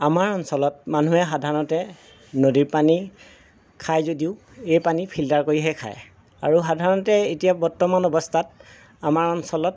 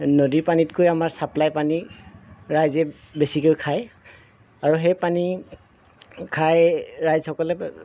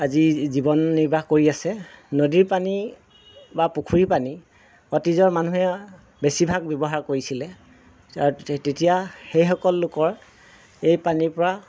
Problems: none marked